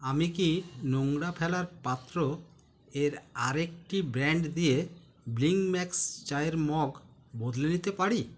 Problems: none marked